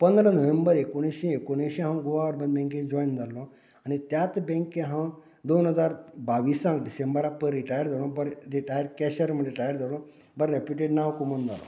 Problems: continuous background conversations